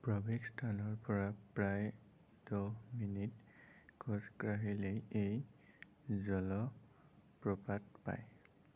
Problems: constant background noise, low volume